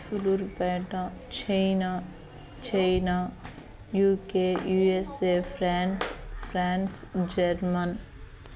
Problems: constant background noise, continuous background conversations